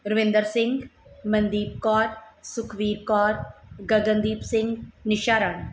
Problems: background sounds at intervals